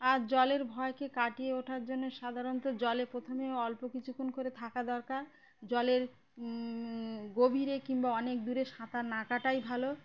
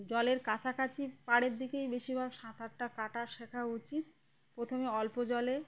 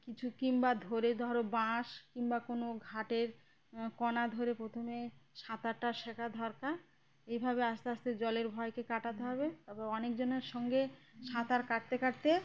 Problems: background conversations at intervals